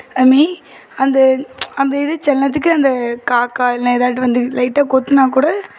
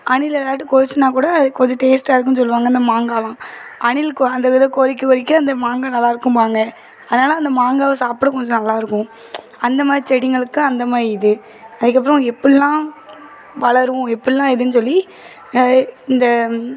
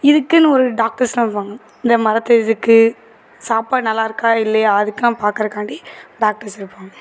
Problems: constant background noise, continuous background conversations